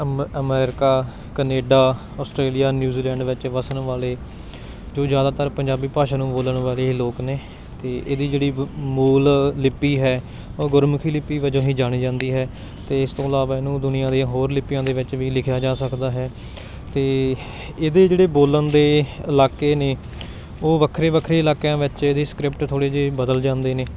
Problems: none marked